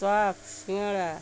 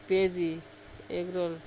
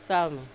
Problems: none marked